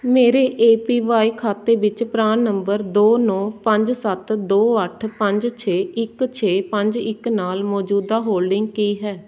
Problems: background sounds at intervals